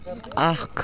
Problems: constant background noise, continuous background conversations